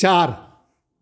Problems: constant background noise